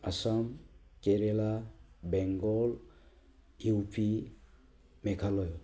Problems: low volume